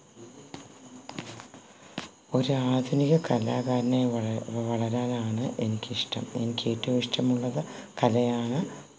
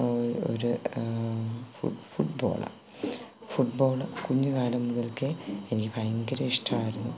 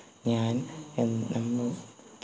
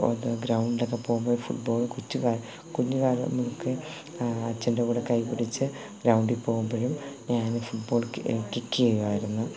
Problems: constant background noise